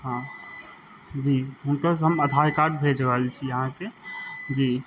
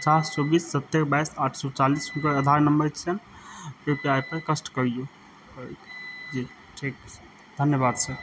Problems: none marked